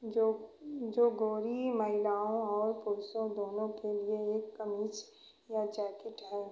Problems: none marked